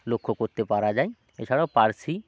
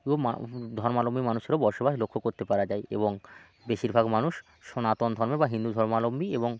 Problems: constant background noise